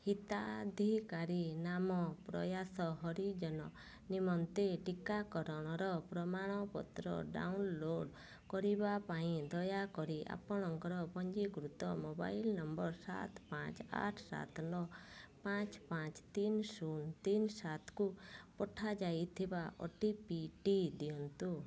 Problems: low volume